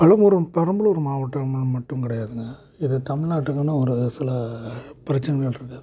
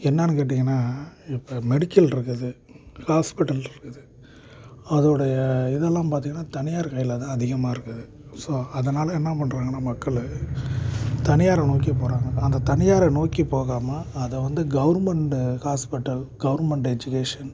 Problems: constant background noise